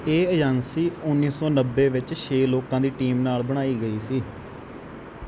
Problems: none marked